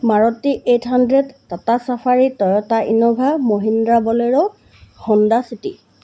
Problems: none marked